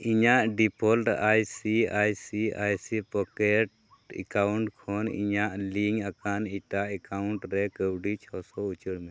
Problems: none marked